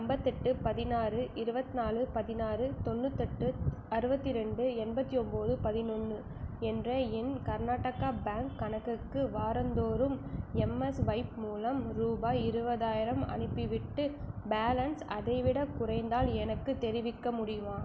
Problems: low volume